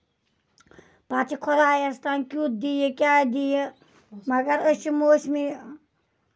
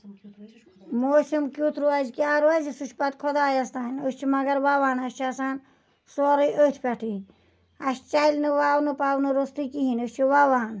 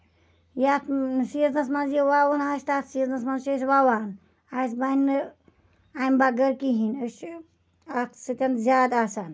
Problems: none marked